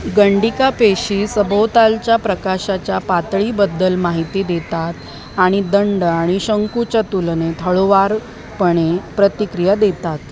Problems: constant background noise, continuous background conversations